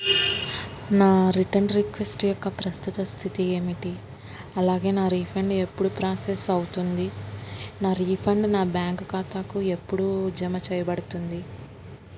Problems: constant background noise